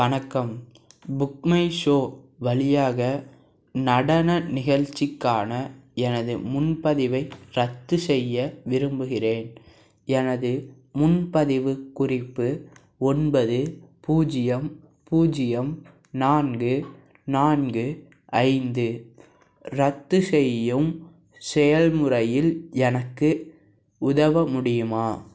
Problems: background sounds at intervals